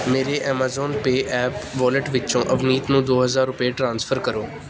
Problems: background sounds at intervals